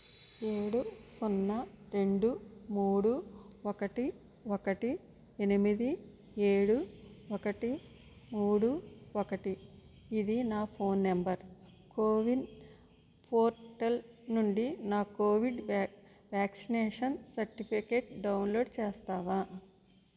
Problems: low volume